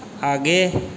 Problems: none marked